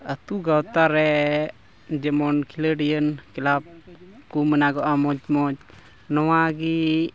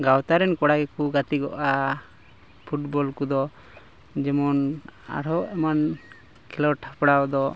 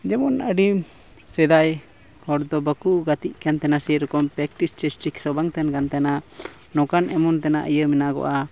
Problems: constant background noise